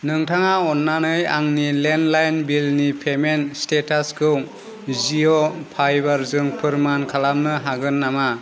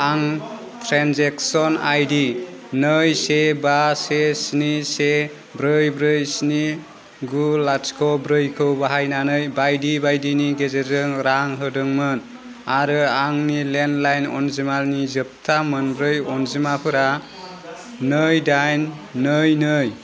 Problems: constant background noise